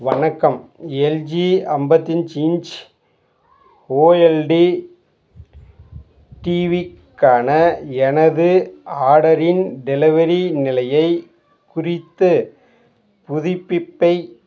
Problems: background sounds at intervals